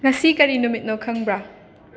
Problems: constant background noise